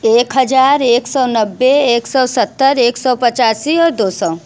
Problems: none marked